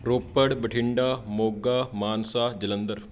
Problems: background sounds at intervals